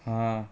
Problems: background conversations at intervals